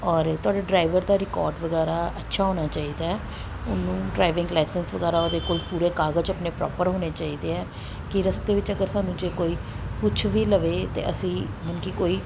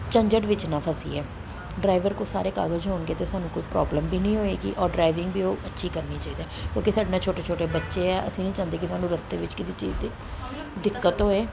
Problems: background sounds at intervals, background conversations at intervals